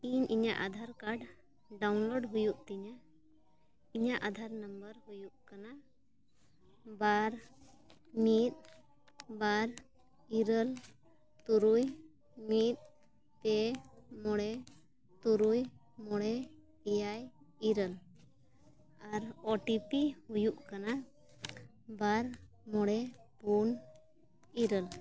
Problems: constant background noise